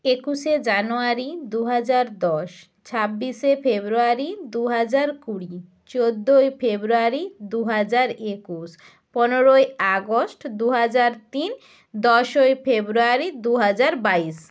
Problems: none marked